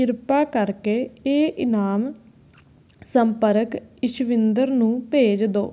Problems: none marked